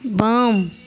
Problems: none marked